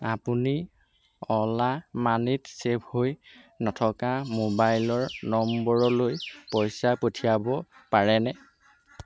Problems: none marked